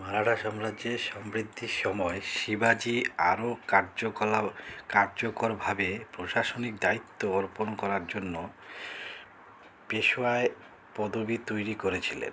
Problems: constant background noise